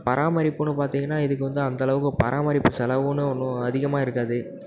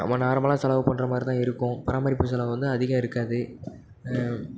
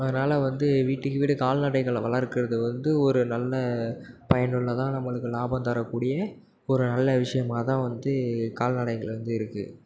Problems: background sounds at intervals